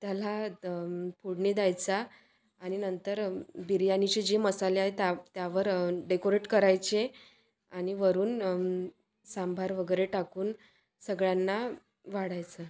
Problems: constant background noise, background conversations at intervals